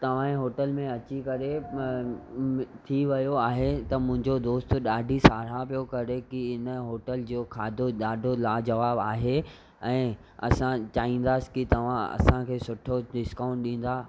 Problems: none marked